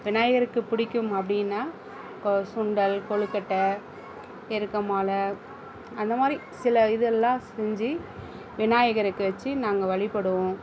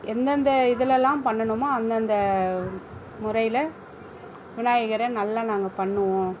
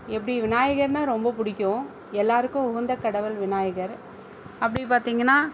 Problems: constant background noise